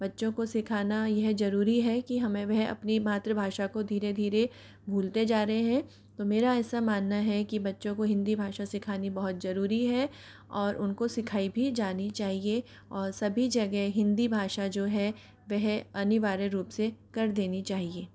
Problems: background sounds at intervals